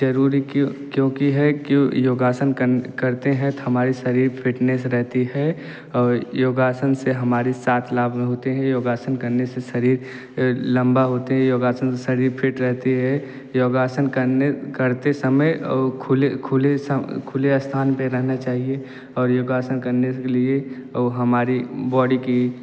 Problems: none marked